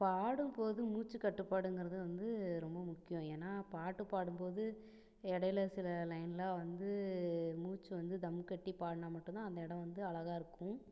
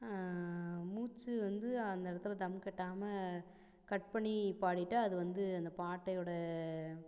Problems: none marked